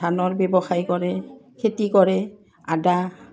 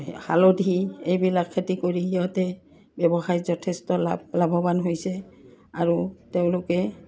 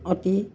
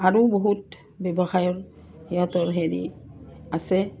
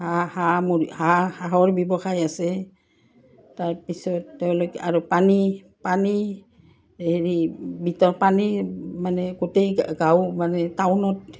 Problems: none marked